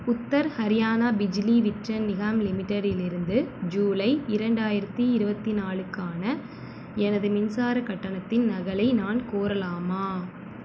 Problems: constant background noise